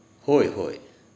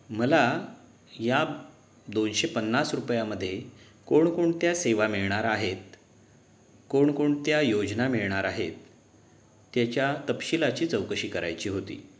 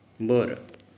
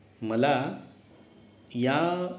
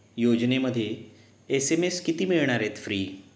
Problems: background sounds at intervals